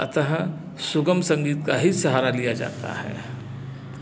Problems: constant background noise